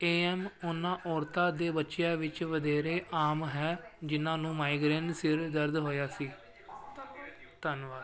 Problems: background sounds at intervals